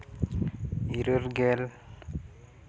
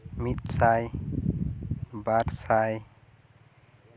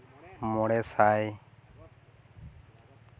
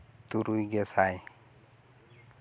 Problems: none marked